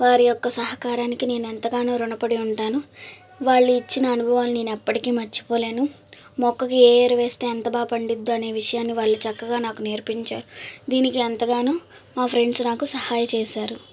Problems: constant background noise